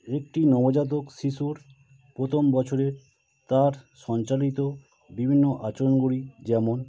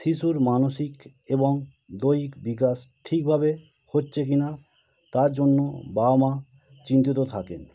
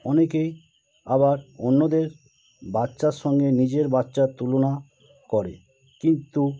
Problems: constant background noise